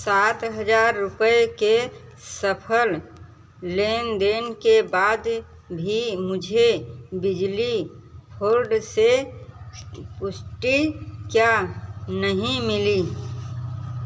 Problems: background sounds at intervals